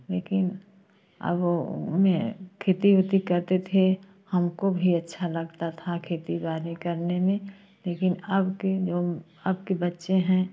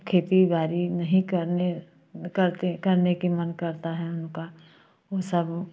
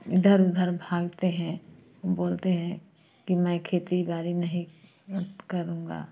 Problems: constant background noise